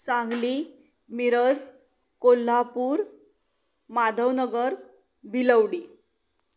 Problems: background sounds at intervals